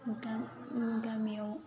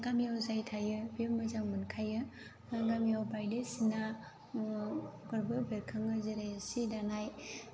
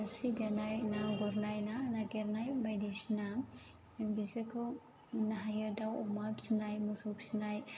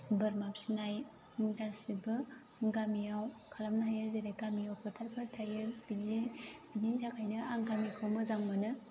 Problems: low volume